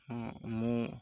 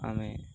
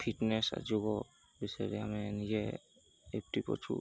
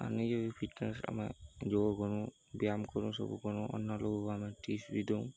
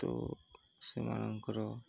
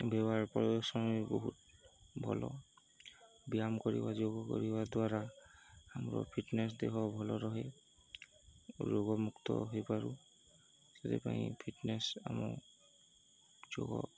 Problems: constant background noise, continuous background conversations